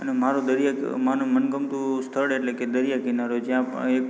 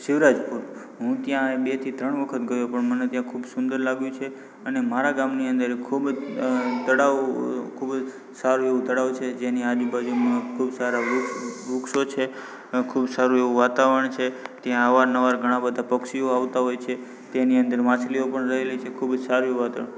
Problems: background conversations at intervals